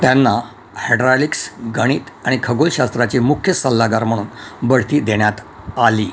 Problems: none marked